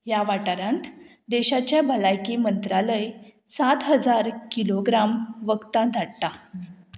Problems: constant background noise